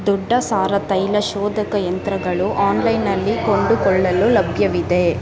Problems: constant background noise